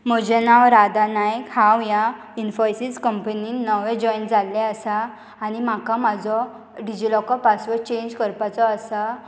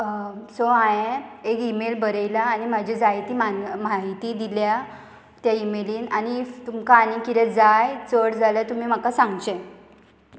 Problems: constant background noise